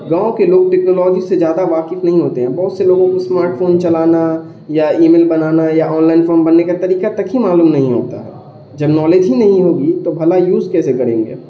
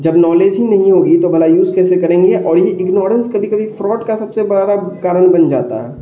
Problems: background sounds at intervals, continuous background conversations